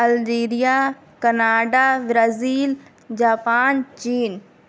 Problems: none marked